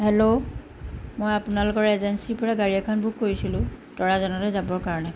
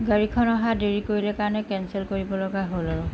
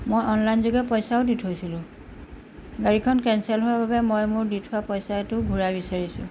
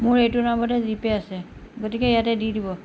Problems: background sounds at intervals